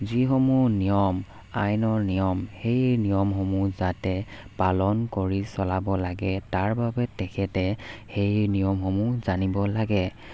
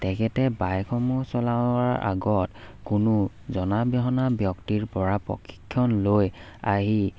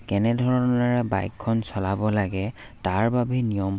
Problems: background sounds at intervals